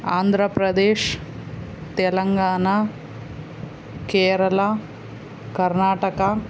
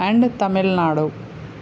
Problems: constant background noise